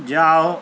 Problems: constant background noise